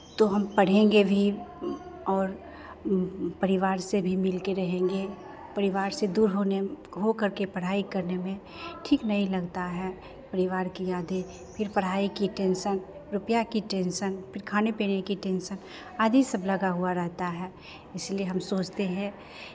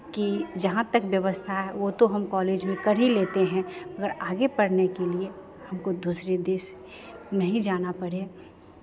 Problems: background sounds at intervals, background conversations at intervals